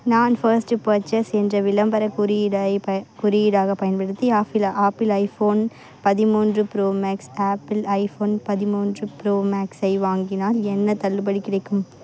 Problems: constant background noise, continuous background conversations